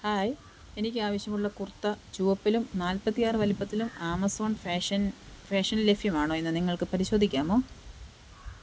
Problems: background sounds at intervals